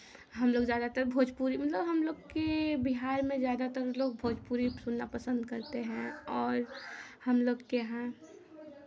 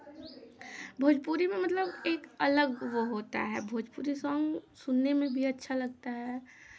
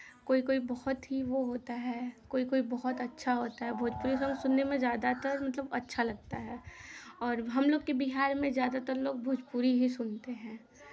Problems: none marked